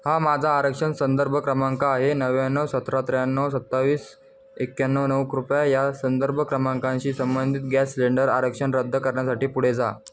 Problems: none marked